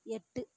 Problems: low volume